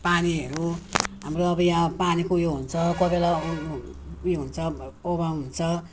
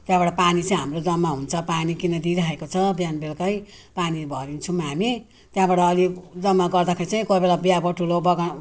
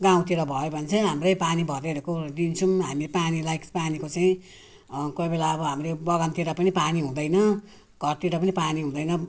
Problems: none marked